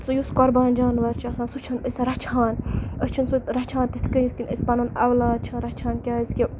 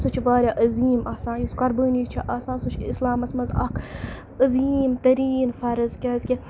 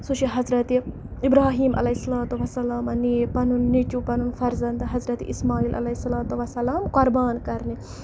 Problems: none marked